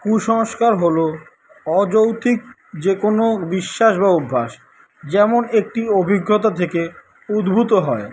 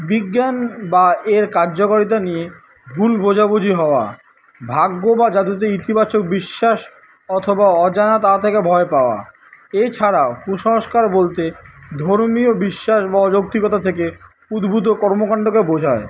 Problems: none marked